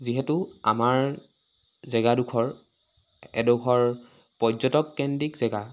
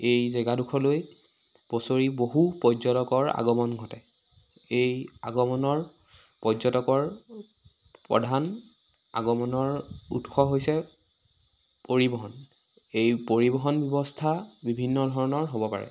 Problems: none marked